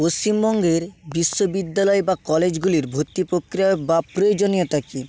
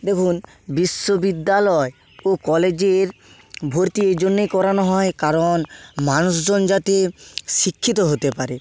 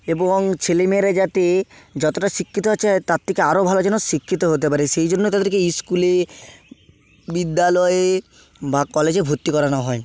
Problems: constant background noise